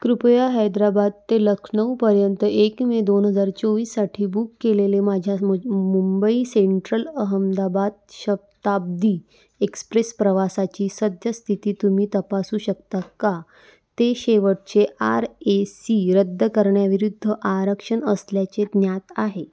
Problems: none marked